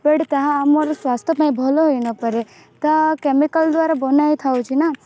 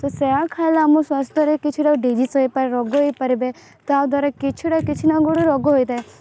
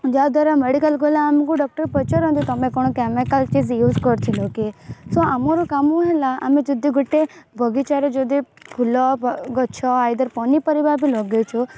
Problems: constant background noise